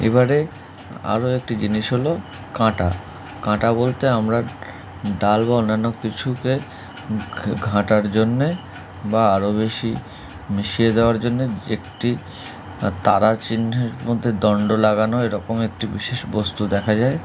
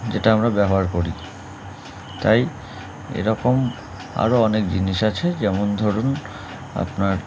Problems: background sounds at intervals